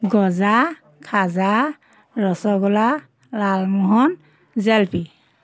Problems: constant background noise